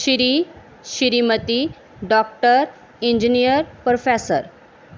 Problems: background sounds at intervals